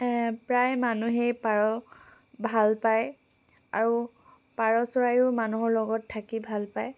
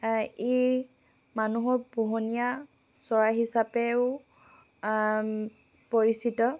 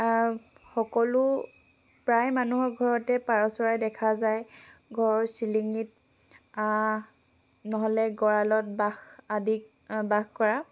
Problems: background sounds at intervals